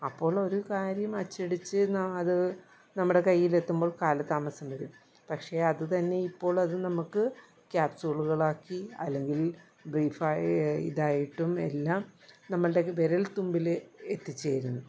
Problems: low volume